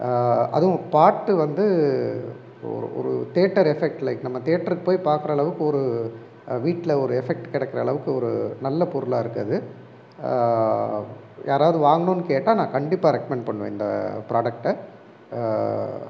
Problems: background sounds at intervals